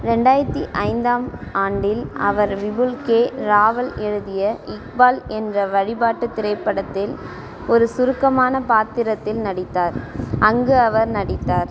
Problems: constant background noise